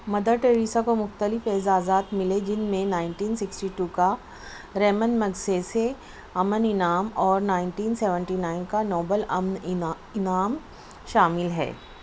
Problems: constant background noise, low volume